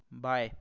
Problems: background sounds at intervals